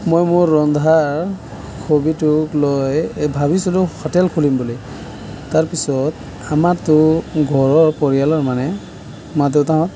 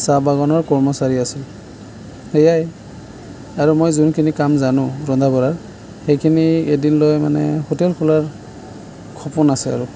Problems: none marked